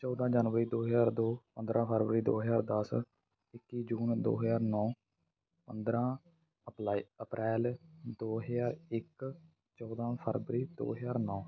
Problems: constant background noise